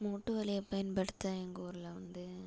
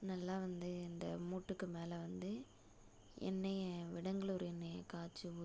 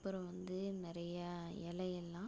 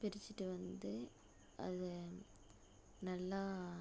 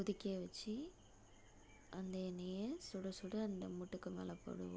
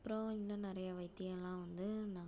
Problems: low volume